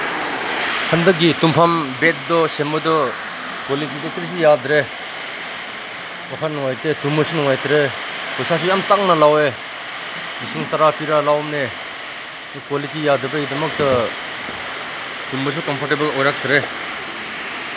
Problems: constant background noise